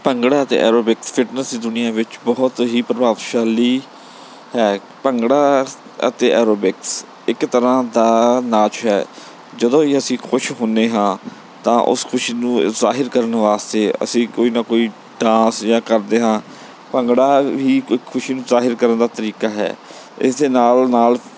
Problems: background sounds at intervals